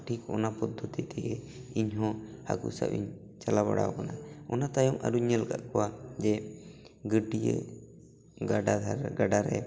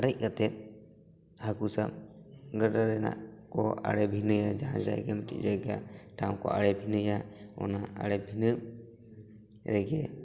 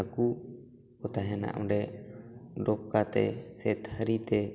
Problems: background conversations at intervals